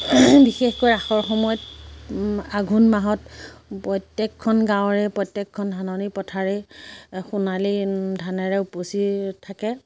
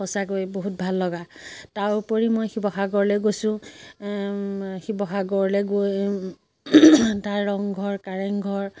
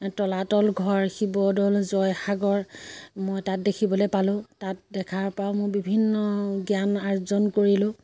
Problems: none marked